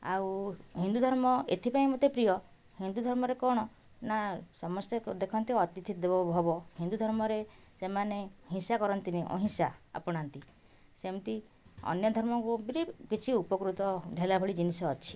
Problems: none marked